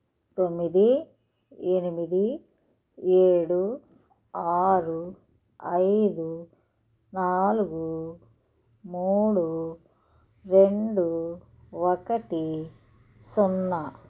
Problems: none marked